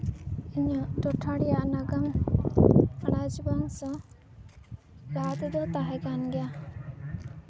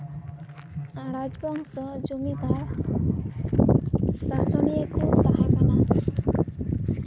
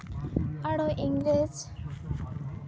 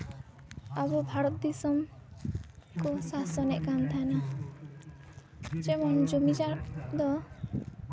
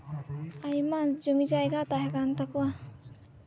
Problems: constant background noise, continuous background conversations